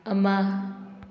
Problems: none marked